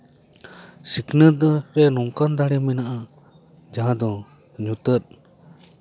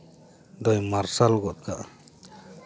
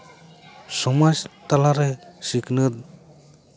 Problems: background conversations at intervals